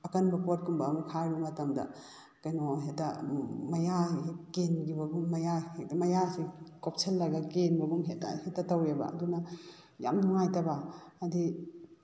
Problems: background sounds at intervals